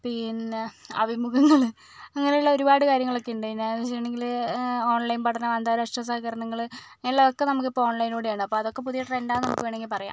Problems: none marked